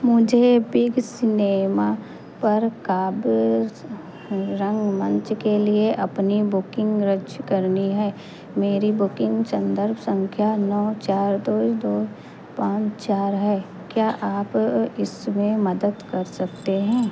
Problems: none marked